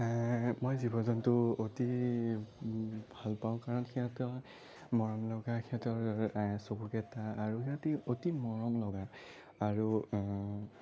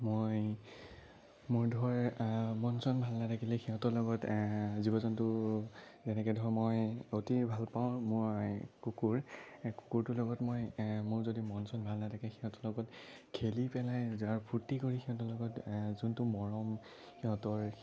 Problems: low volume